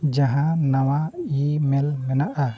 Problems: background conversations at intervals